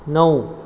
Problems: background sounds at intervals